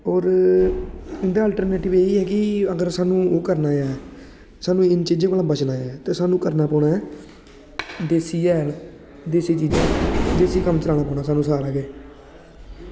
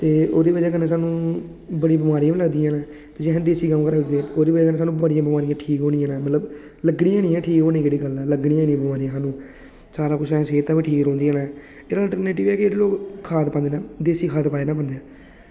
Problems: constant background noise